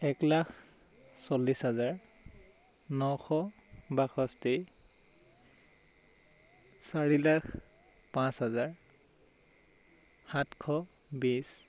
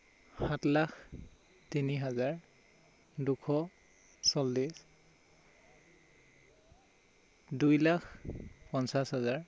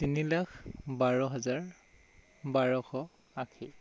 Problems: low volume